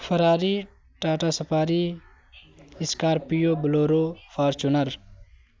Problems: constant background noise